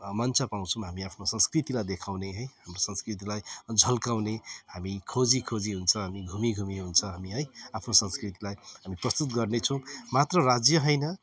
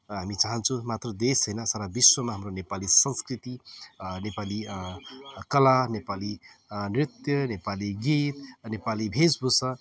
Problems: background sounds at intervals